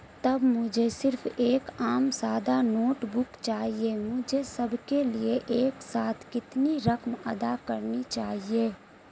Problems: constant background noise